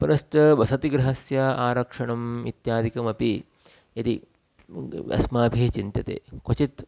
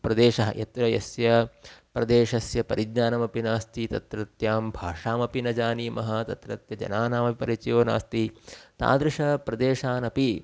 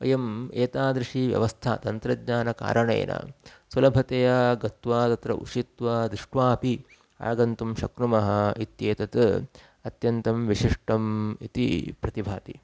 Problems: none marked